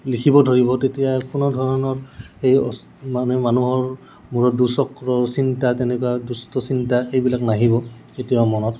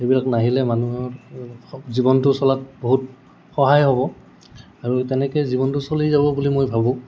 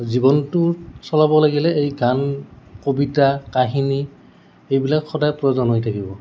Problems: background sounds at intervals